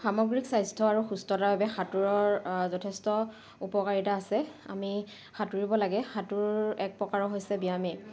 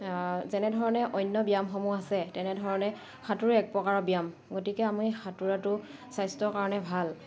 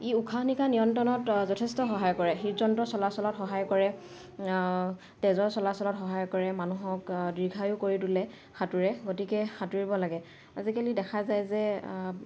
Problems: background sounds at intervals